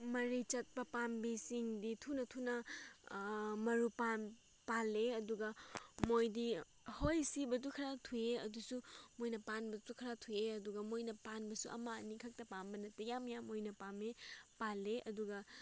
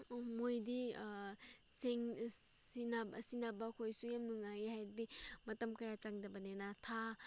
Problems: background sounds at intervals